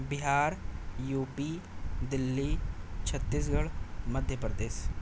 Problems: constant background noise